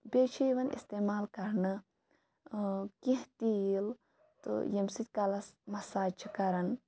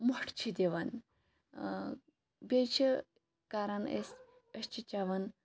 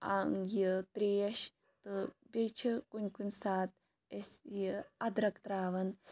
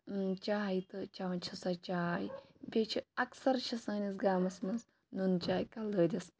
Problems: background sounds at intervals